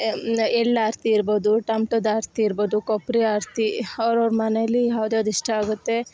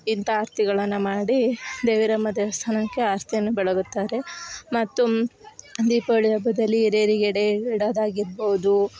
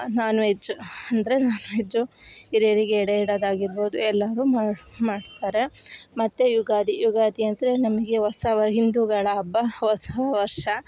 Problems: background sounds at intervals